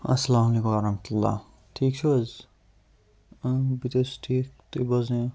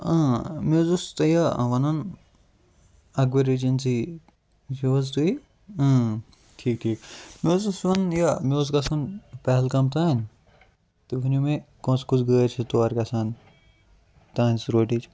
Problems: none marked